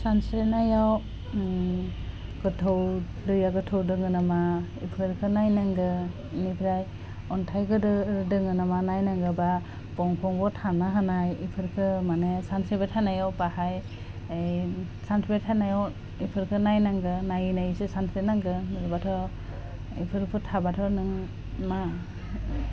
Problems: constant background noise